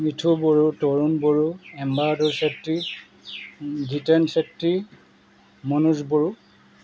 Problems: background sounds at intervals